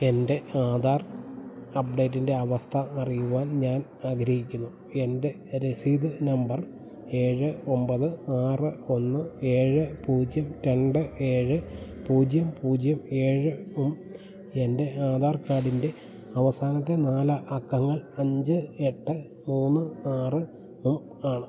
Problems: none marked